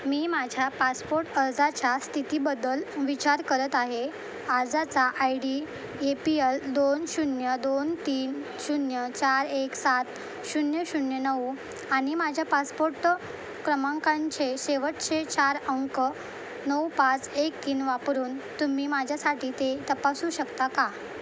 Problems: constant background noise